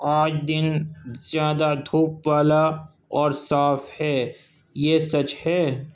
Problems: none marked